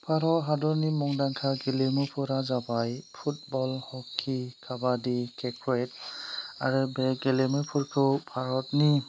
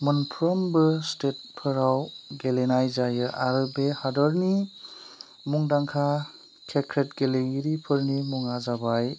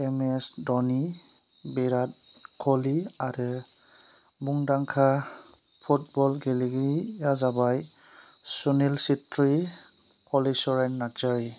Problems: low volume